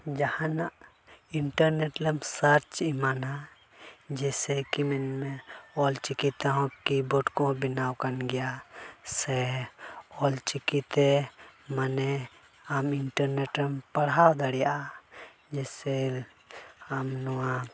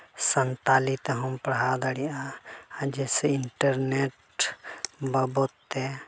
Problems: background sounds at intervals